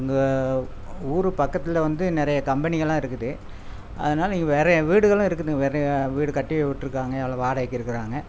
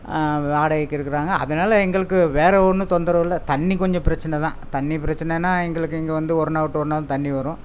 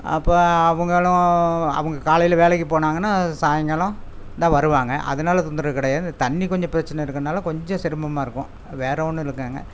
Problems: constant background noise